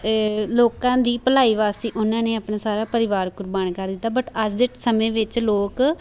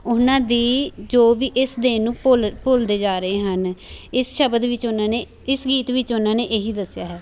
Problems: none marked